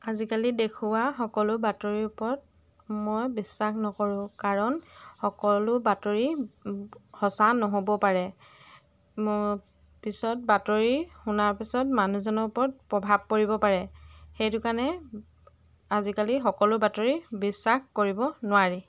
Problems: none marked